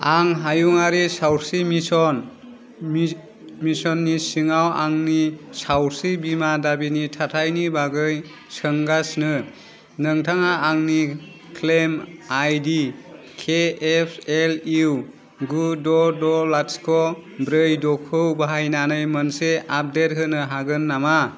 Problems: none marked